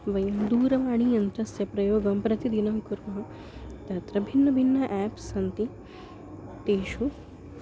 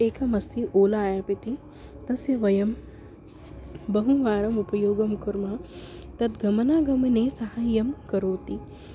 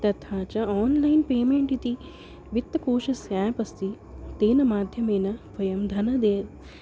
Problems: constant background noise